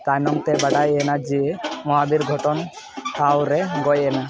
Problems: constant background noise